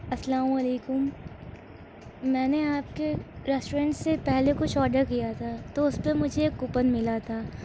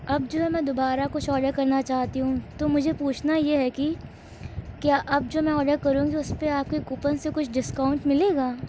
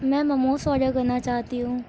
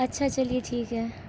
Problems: constant background noise